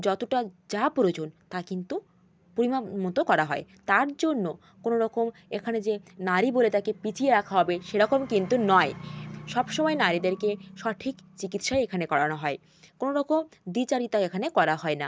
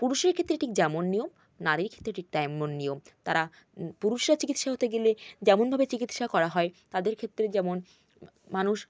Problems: none marked